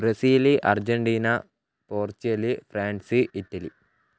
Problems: none marked